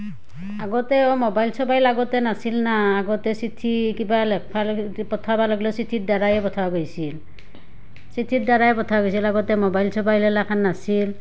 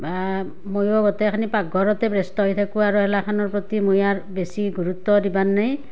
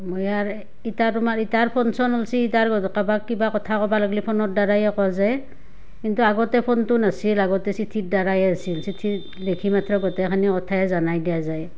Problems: background sounds at intervals